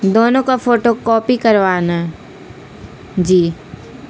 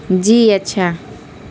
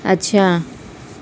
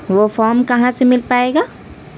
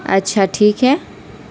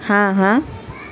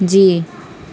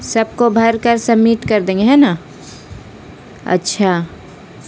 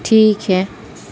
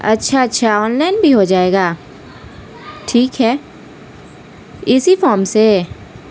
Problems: constant background noise